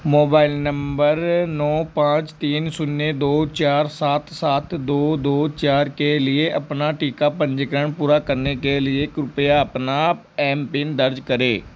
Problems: none marked